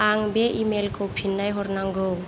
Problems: constant background noise